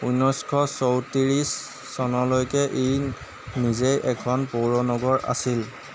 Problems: none marked